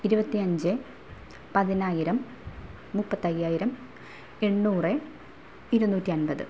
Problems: none marked